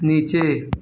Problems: background sounds at intervals